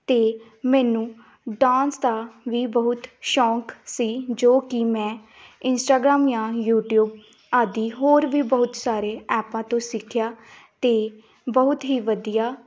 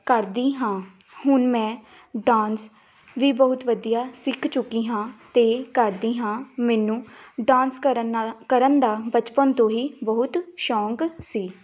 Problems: background sounds at intervals